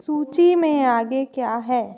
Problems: constant background noise, echo